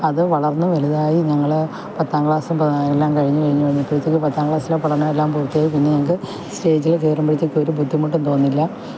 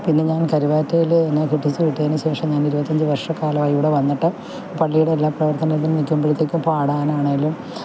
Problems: constant background noise, low volume